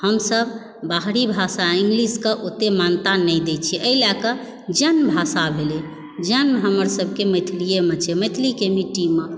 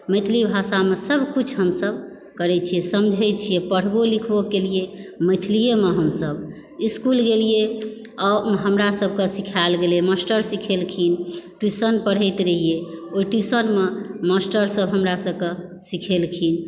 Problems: background sounds at intervals